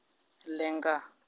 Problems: none marked